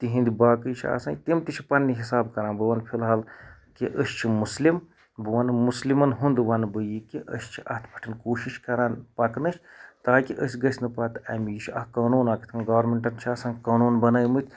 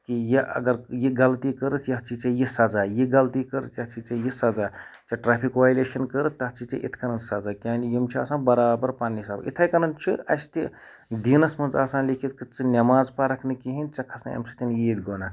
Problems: none marked